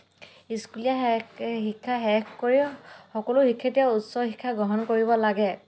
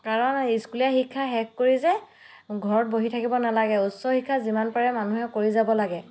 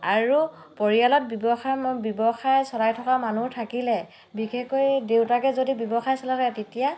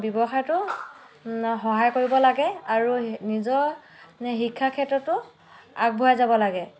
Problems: background sounds at intervals